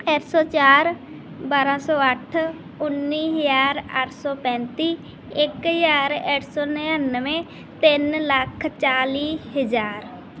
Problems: background sounds at intervals